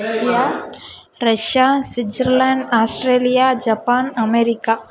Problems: background conversations at intervals